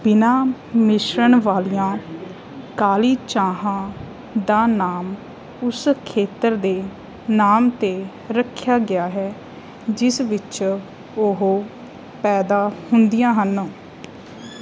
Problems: background sounds at intervals